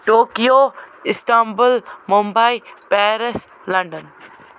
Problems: none marked